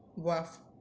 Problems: none marked